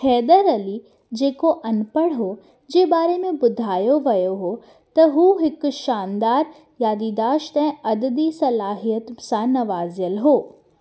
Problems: none marked